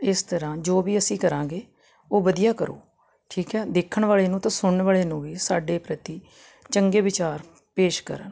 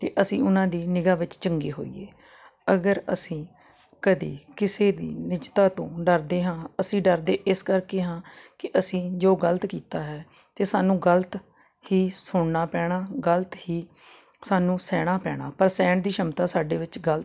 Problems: constant background noise